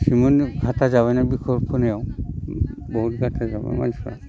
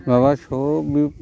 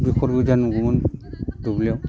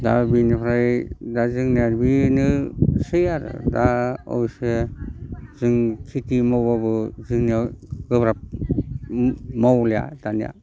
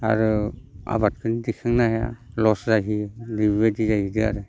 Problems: low volume